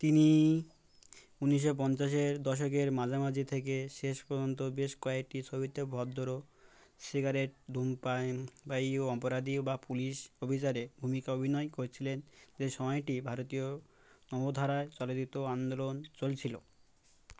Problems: constant background noise